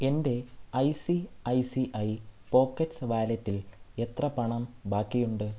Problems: low volume